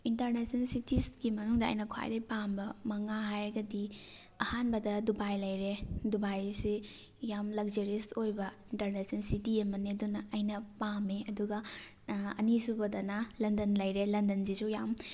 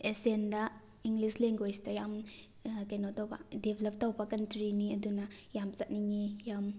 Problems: background sounds at intervals